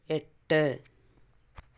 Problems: low volume